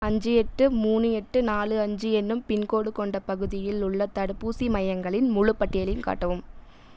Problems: none marked